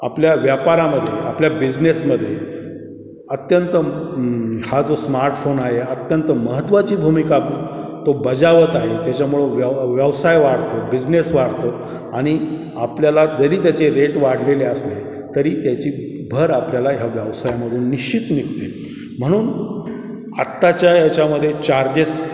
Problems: constant background noise, background conversations at intervals, echo